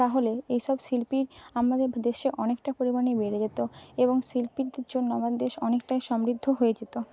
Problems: none marked